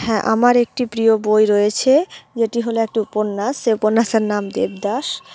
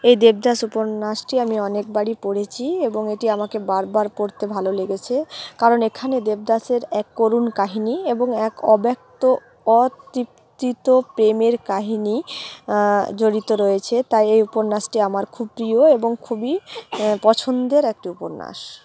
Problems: none marked